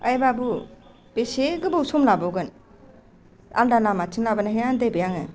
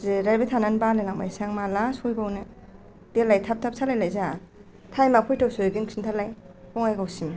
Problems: low volume